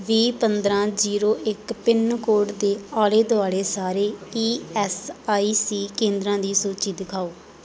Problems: background conversations at intervals